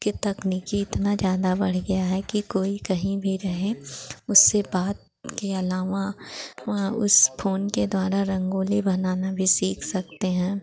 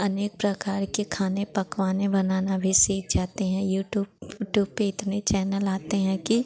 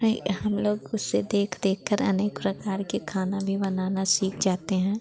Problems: constant background noise